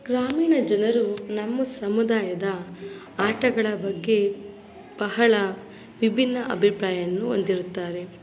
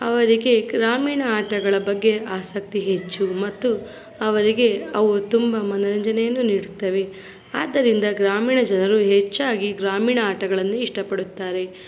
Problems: background sounds at intervals